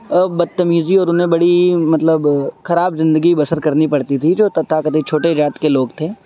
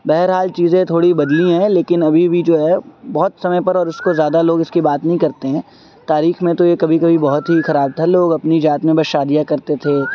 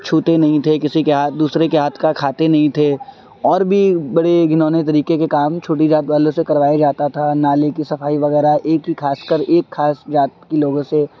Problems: constant background noise